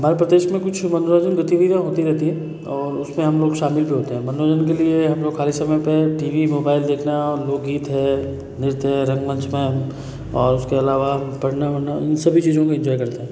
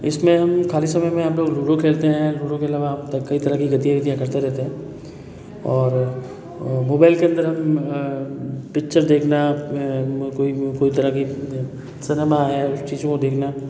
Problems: background sounds at intervals, background conversations at intervals